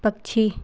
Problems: none marked